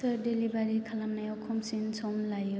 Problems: low volume